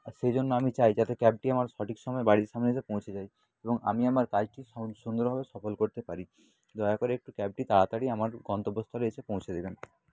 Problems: background sounds at intervals, low volume